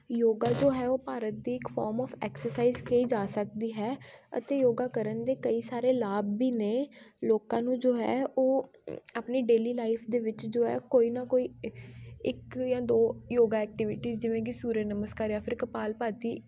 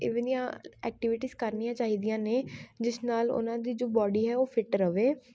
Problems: background sounds at intervals, background conversations at intervals